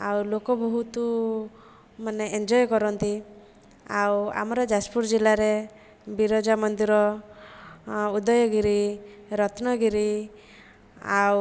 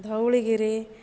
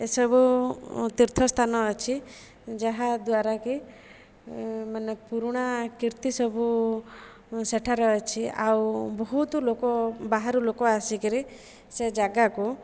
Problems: none marked